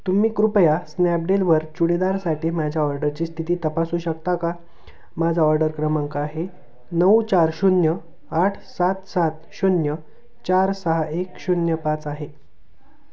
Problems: background sounds at intervals, background conversations at intervals